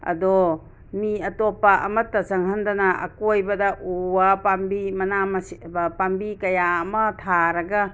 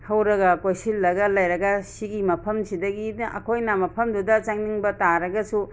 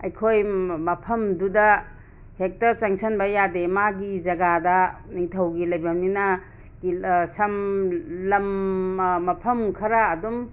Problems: constant background noise